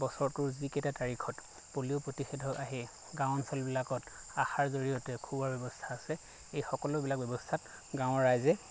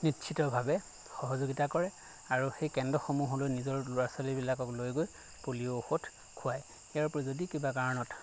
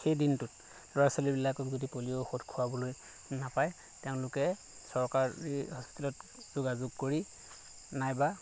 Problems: constant background noise